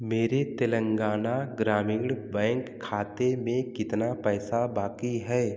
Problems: background sounds at intervals